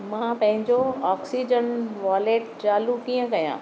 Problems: none marked